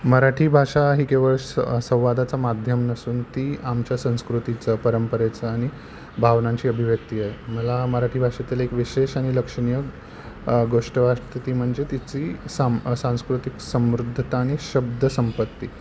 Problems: none marked